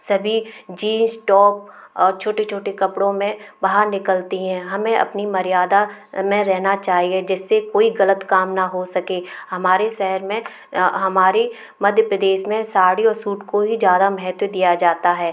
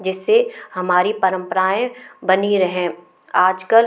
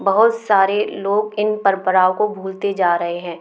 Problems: none marked